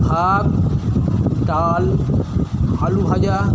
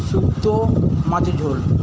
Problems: constant background noise